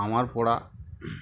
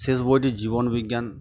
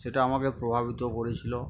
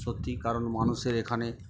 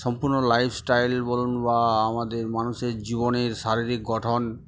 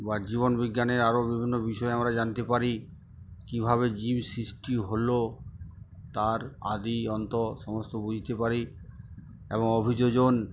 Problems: background sounds at intervals